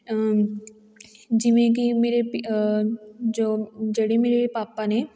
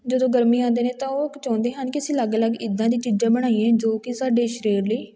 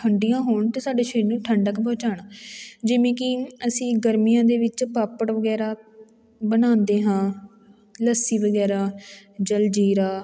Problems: none marked